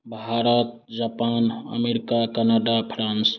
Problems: none marked